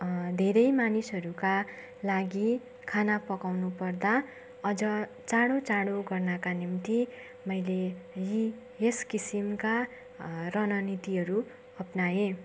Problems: constant background noise